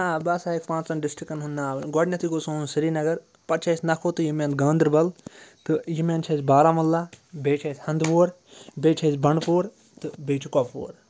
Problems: background sounds at intervals